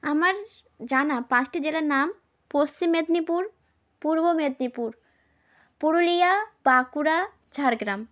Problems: constant background noise